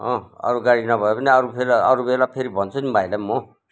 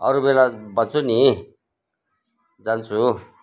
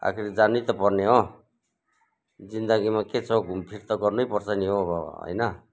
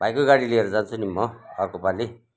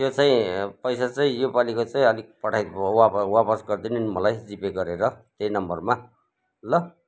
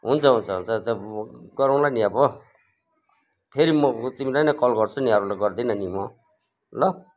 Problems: background conversations at intervals